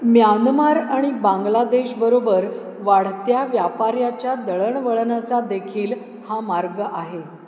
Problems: constant background noise